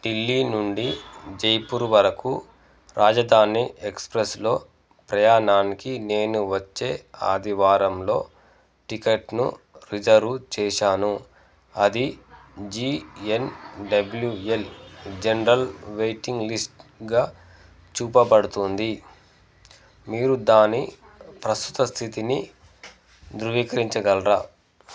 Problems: background sounds at intervals